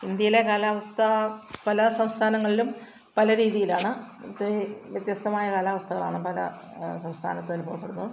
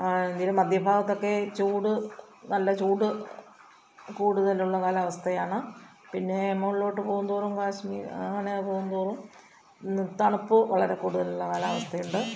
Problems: background sounds at intervals, low volume